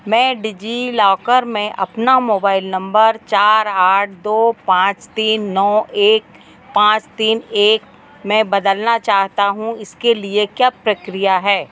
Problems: none marked